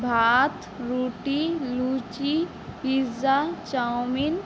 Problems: background conversations at intervals